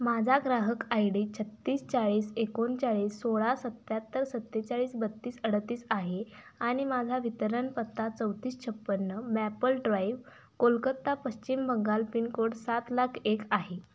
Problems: constant background noise